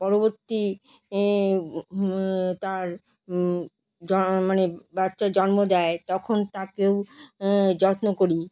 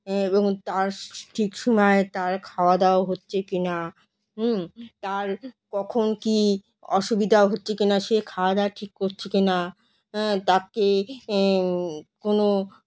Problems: background sounds at intervals